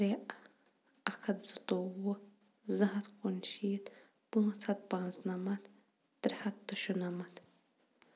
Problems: none marked